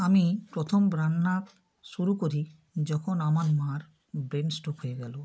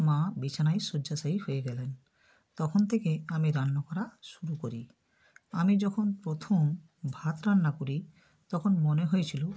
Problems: none marked